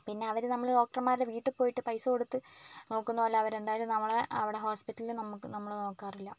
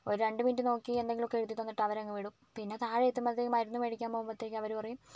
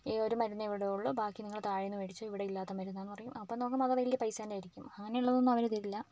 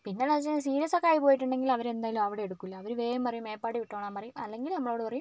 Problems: none marked